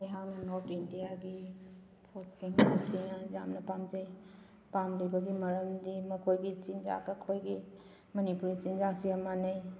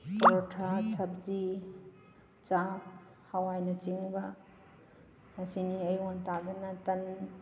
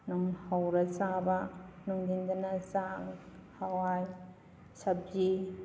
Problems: background sounds at intervals